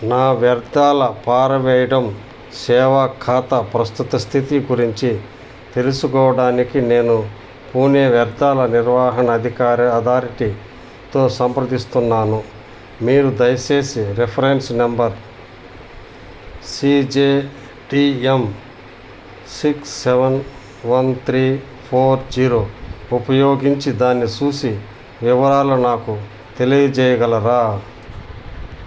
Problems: none marked